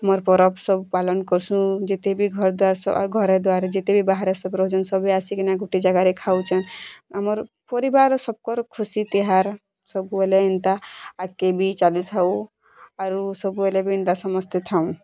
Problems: constant background noise